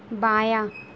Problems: constant background noise